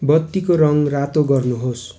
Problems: constant background noise